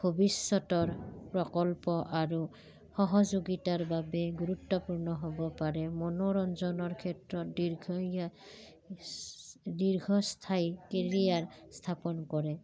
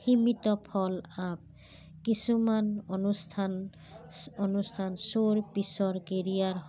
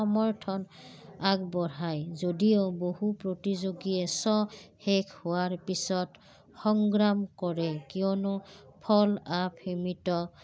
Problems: background sounds at intervals